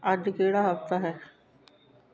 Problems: continuous background conversations